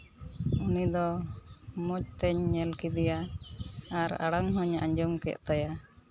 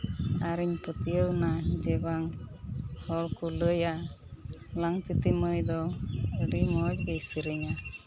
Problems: none marked